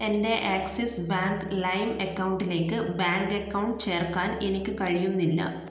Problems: none marked